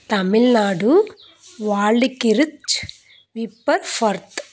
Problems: constant background noise